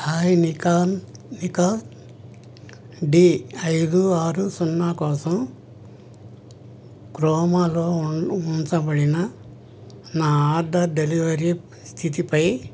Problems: none marked